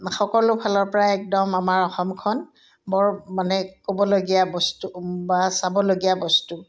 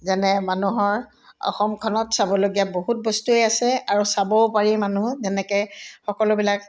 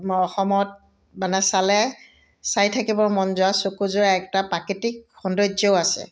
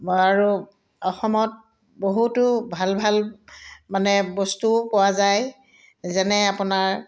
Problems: none marked